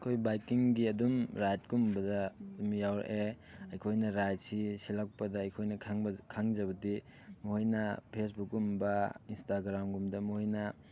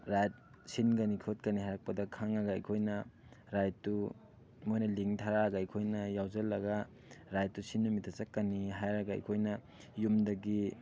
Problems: background sounds at intervals